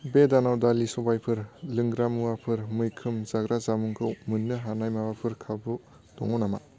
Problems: constant background noise